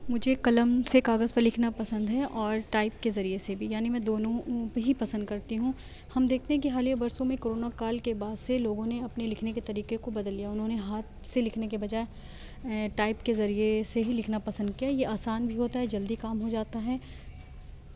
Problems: background sounds at intervals